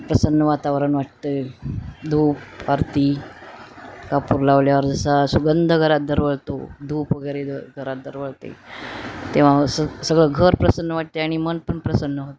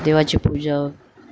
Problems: constant background noise